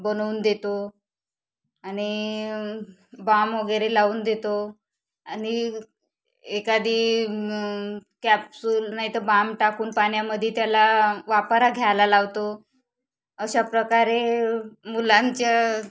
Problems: background sounds at intervals, background conversations at intervals